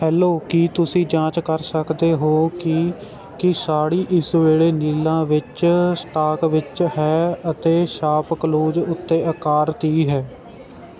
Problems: constant background noise